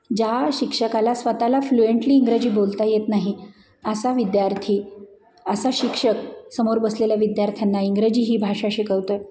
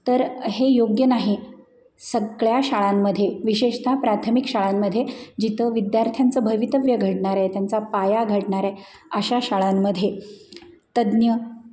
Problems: none marked